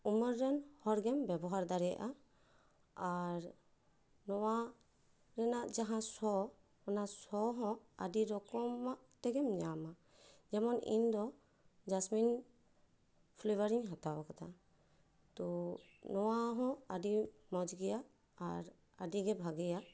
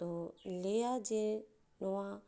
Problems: none marked